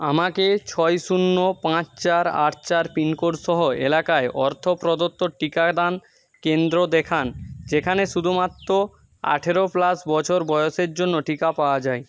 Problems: none marked